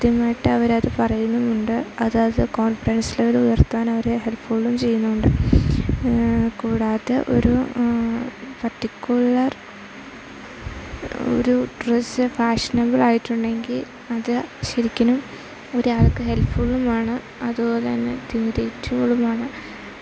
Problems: constant background noise, low volume